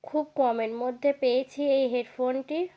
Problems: none marked